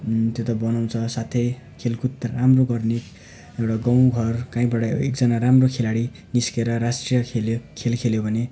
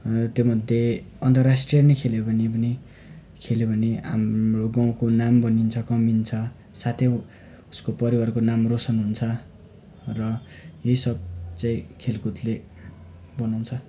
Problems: background sounds at intervals